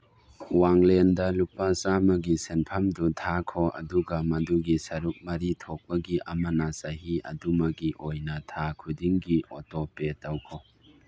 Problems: background sounds at intervals